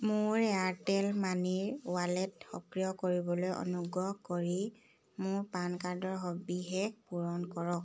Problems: none marked